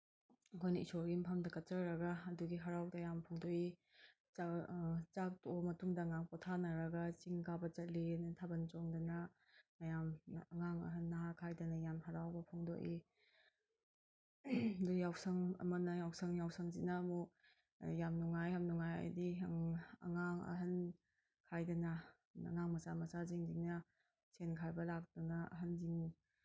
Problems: background sounds at intervals